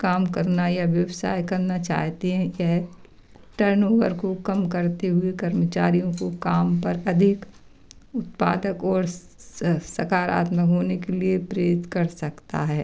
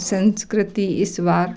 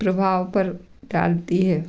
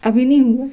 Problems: background sounds at intervals